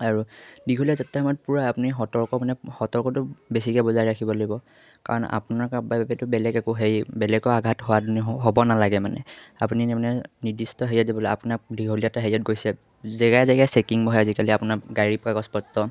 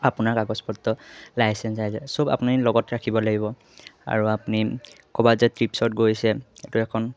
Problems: none marked